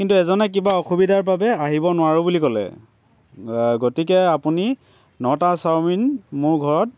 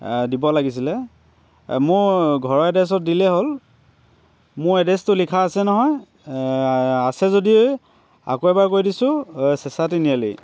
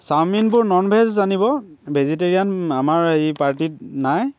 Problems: none marked